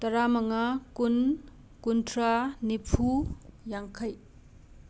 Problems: none marked